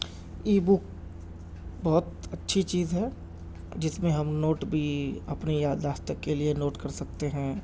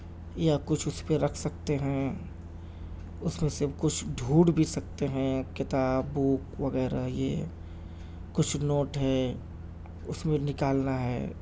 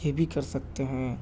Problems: constant background noise